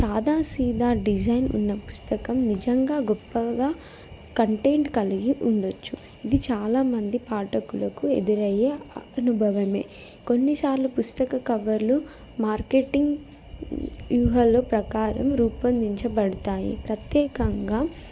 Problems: background conversations at intervals